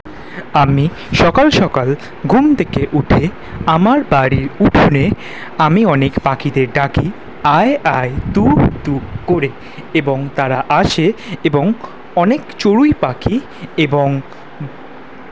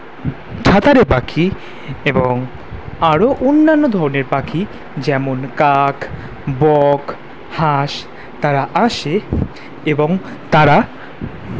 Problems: background sounds at intervals